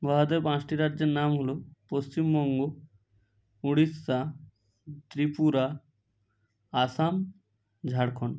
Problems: none marked